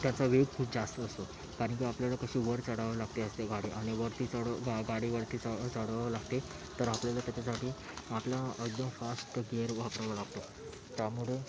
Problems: constant background noise, continuous background conversations